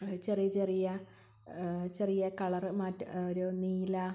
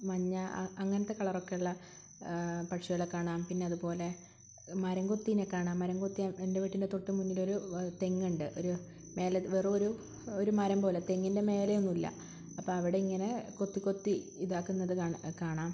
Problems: constant background noise